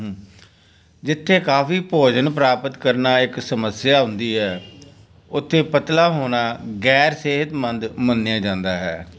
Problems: background conversations at intervals